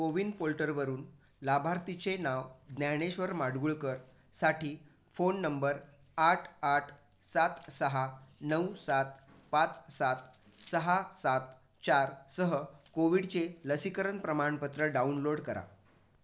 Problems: none marked